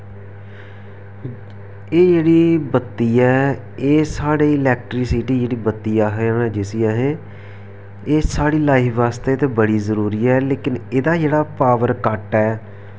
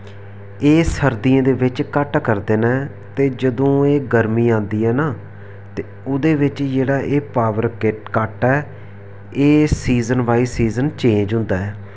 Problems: none marked